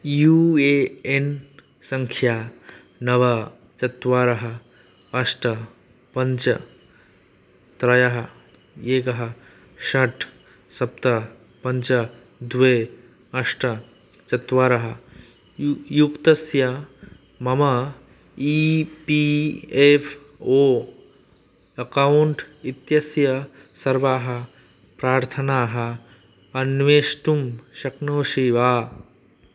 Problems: none marked